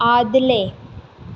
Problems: constant background noise